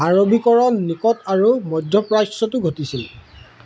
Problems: background sounds at intervals